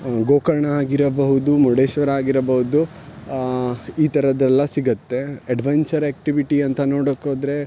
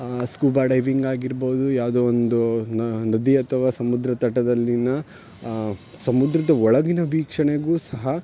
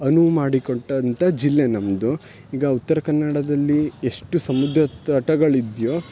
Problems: none marked